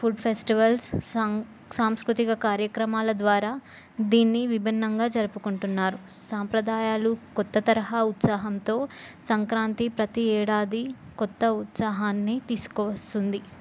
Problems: none marked